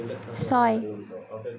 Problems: continuous background conversations